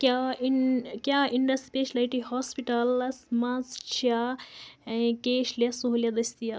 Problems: constant background noise